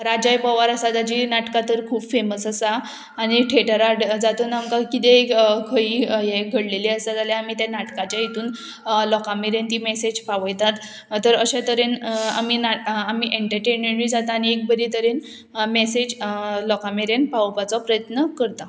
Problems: none marked